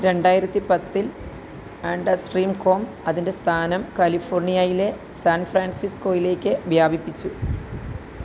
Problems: constant background noise